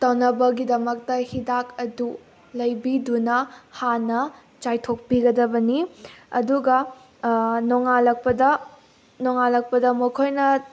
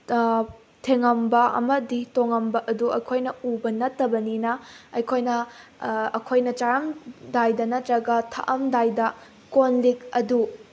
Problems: constant background noise